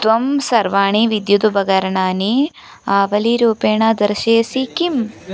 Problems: none marked